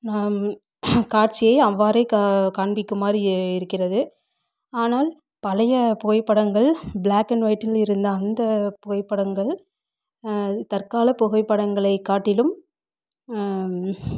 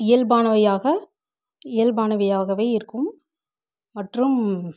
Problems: background sounds at intervals